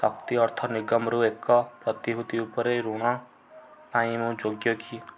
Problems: low volume